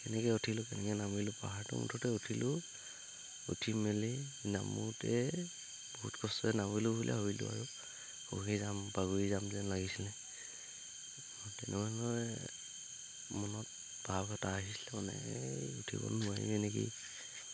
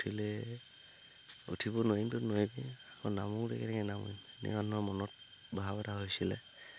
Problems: background sounds at intervals